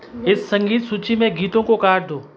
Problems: background conversations at intervals